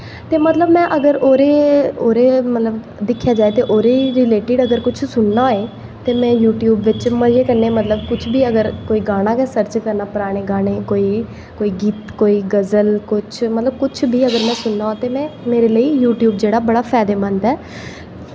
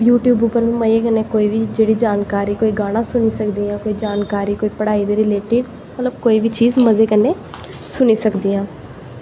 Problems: echo